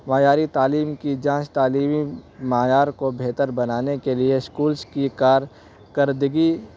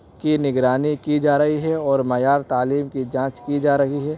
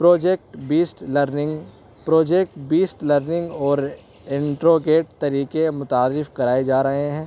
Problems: background sounds at intervals